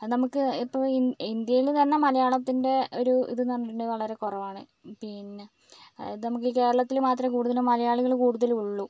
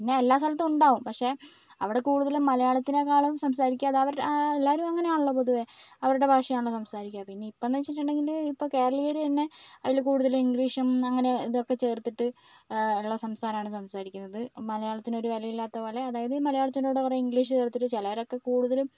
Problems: none marked